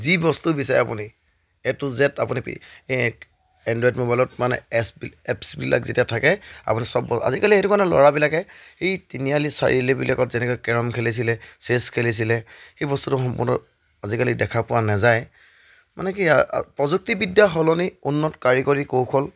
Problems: background sounds at intervals